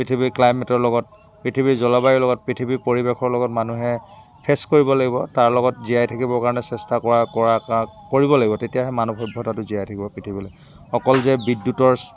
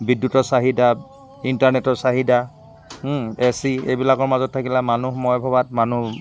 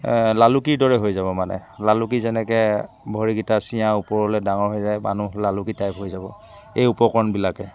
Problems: constant background noise, background conversations at intervals